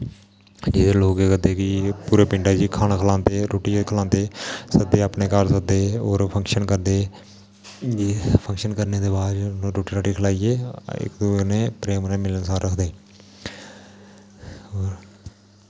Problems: constant background noise